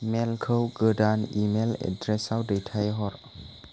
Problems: constant background noise